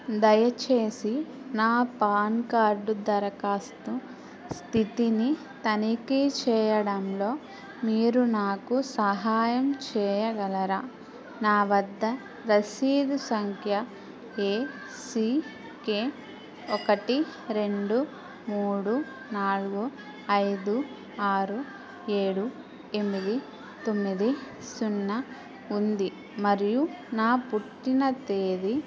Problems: constant background noise